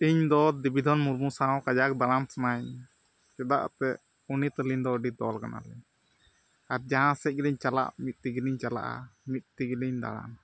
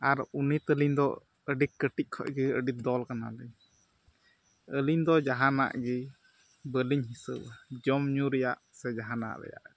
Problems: background sounds at intervals